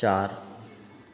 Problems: echo